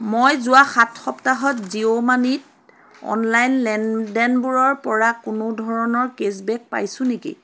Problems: none marked